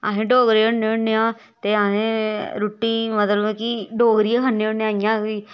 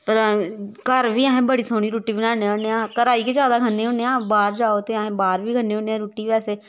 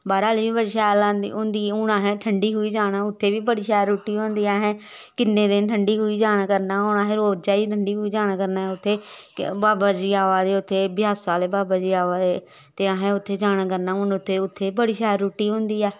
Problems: background sounds at intervals